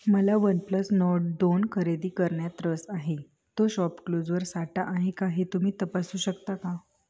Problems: constant background noise